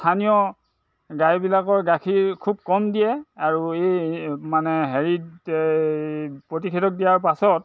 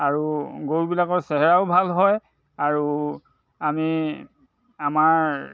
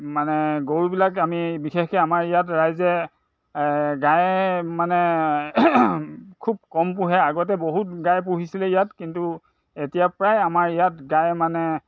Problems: constant background noise